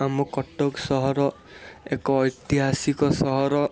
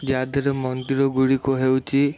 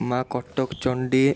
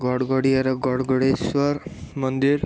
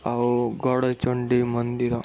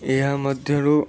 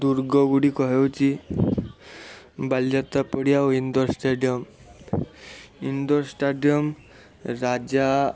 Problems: constant background noise